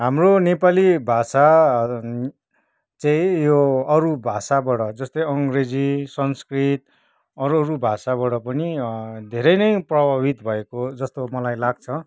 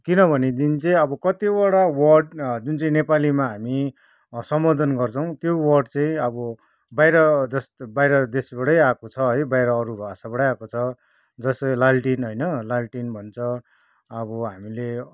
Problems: background conversations at intervals